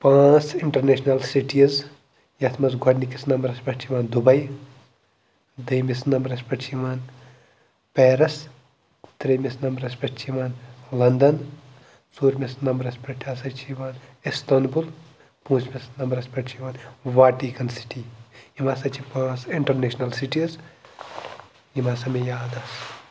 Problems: background sounds at intervals